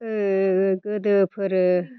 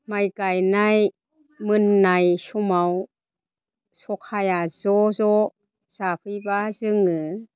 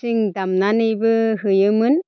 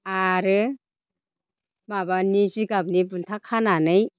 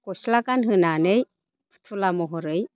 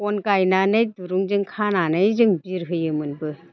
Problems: constant background noise